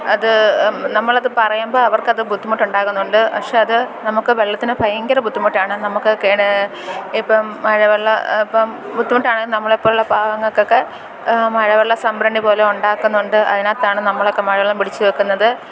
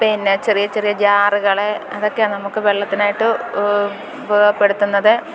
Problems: constant background noise